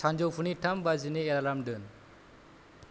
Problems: low volume